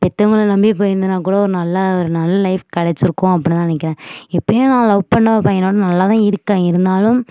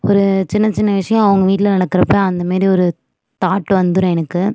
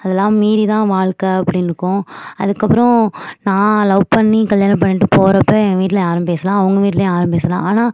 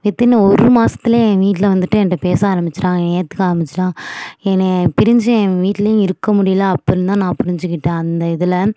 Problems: none marked